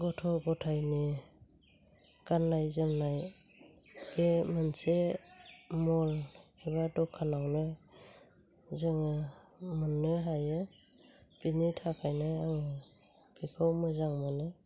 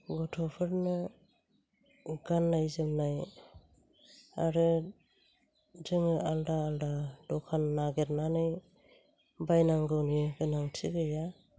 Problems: low volume